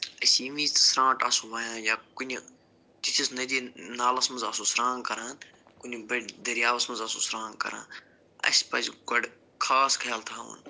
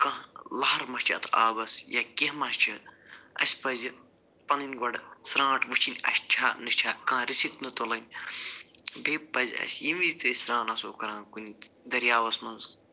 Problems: none marked